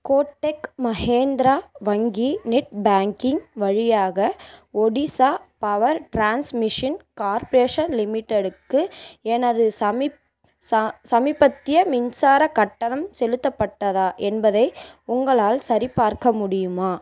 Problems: constant background noise